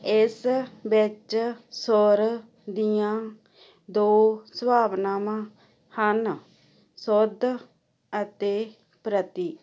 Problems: none marked